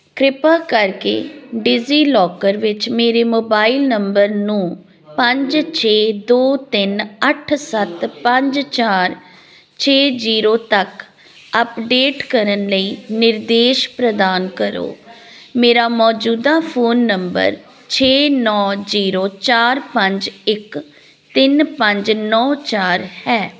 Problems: background sounds at intervals